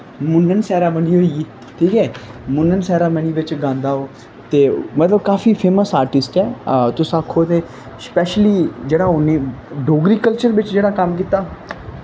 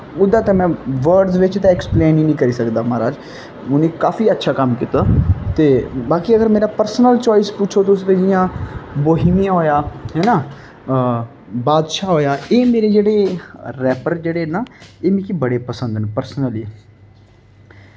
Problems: none marked